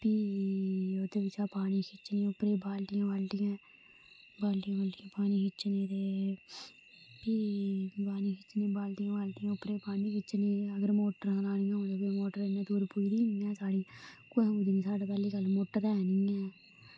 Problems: constant background noise, low volume